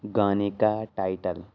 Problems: none marked